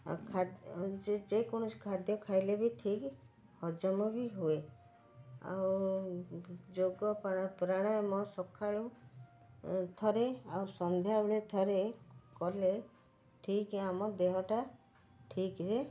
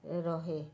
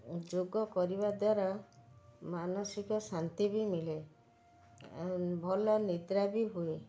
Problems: none marked